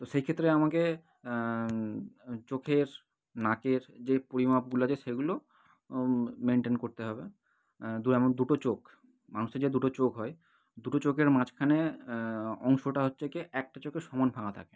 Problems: none marked